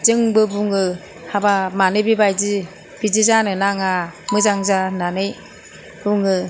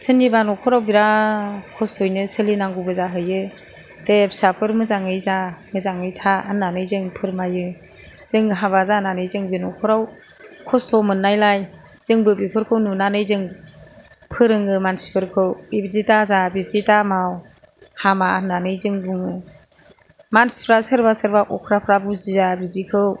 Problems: none marked